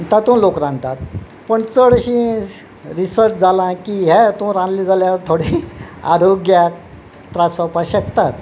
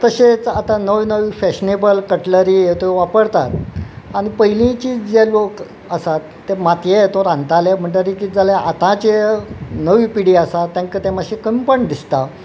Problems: none marked